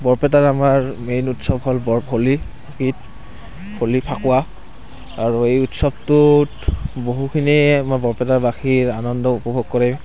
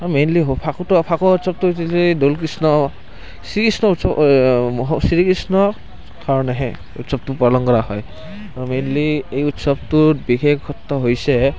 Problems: constant background noise